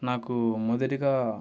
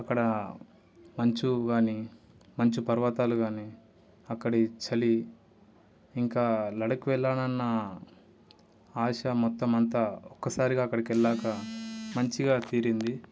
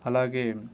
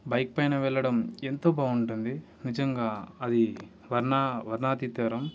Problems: background sounds at intervals